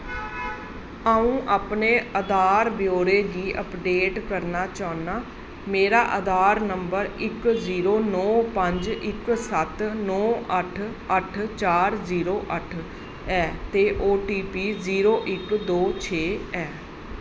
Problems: constant background noise, echo